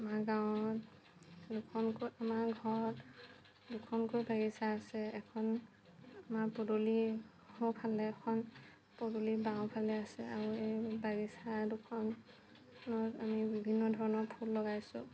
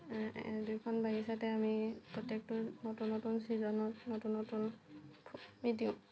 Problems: none marked